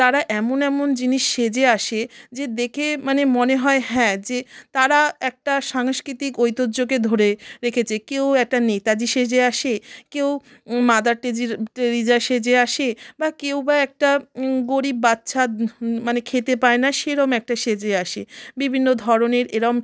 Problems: none marked